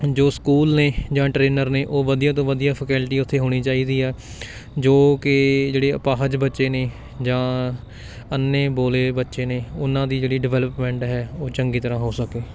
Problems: background sounds at intervals